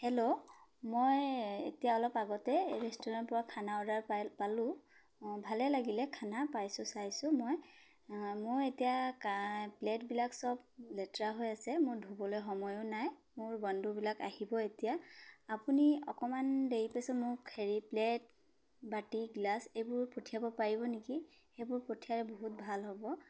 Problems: background sounds at intervals